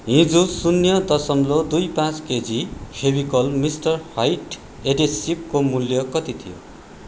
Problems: constant background noise